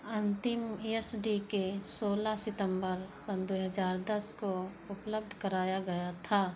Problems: constant background noise